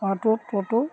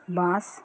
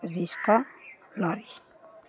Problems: none marked